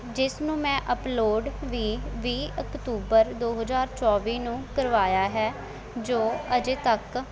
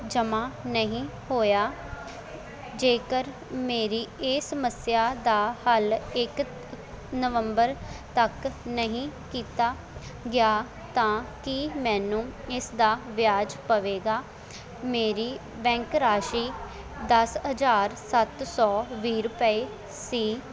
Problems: constant background noise, background conversations at intervals